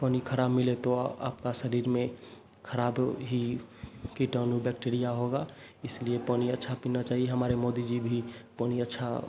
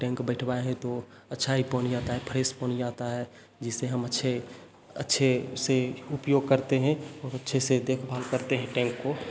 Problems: constant background noise, echo